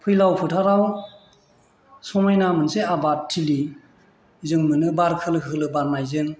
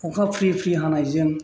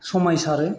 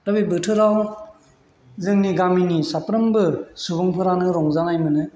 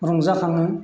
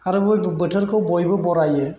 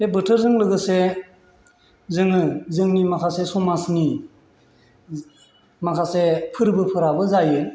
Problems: none marked